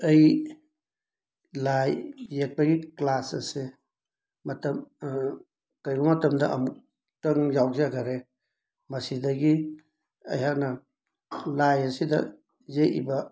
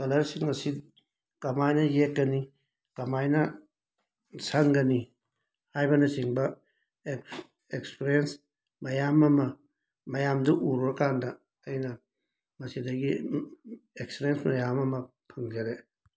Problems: background sounds at intervals